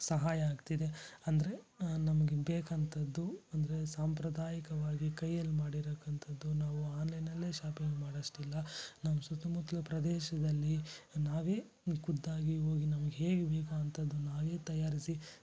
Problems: low volume